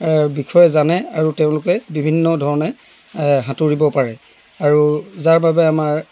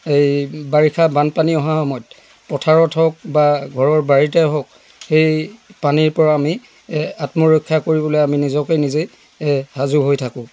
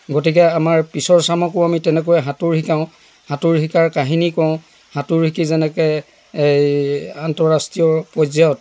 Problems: none marked